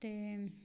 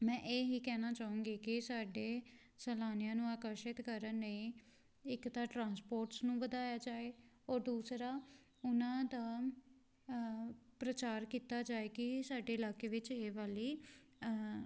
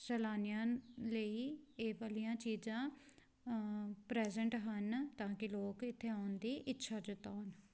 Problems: background sounds at intervals